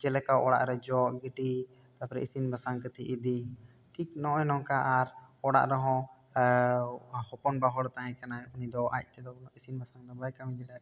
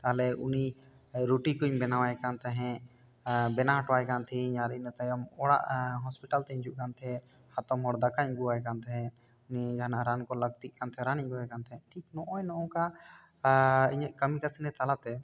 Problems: none marked